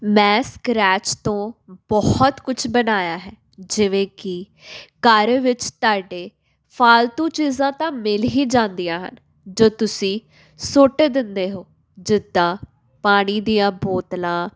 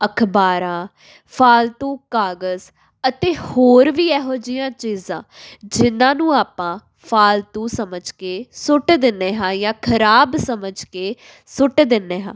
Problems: none marked